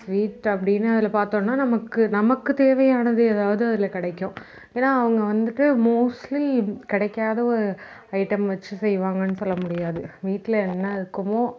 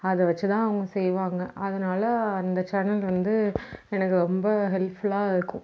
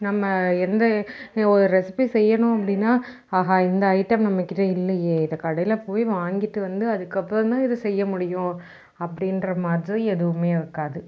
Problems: background sounds at intervals